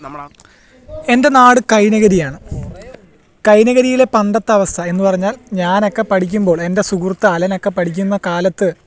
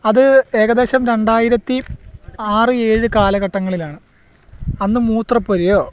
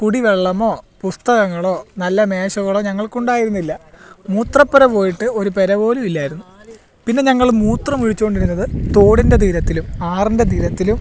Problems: background sounds at intervals